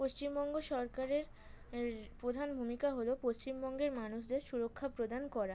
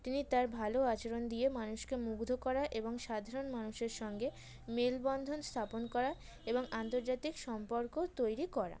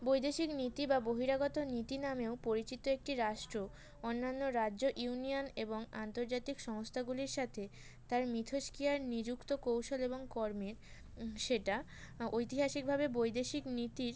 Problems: background sounds at intervals